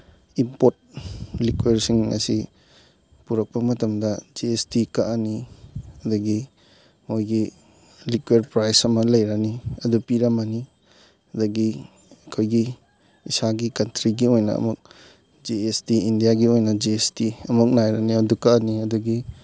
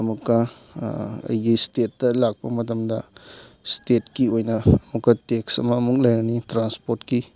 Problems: background sounds at intervals